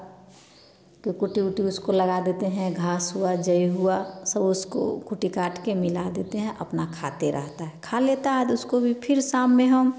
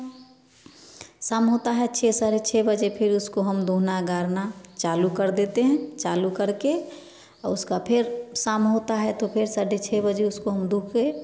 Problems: background sounds at intervals, background conversations at intervals